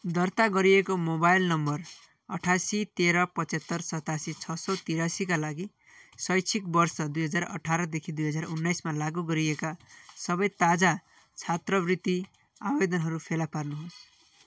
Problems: background sounds at intervals